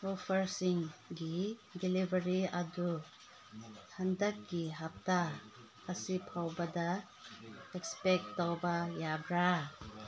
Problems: constant background noise, background conversations at intervals